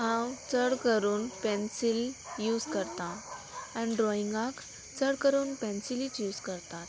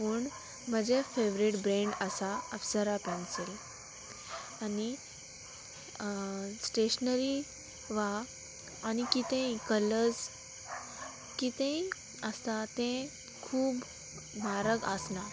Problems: constant background noise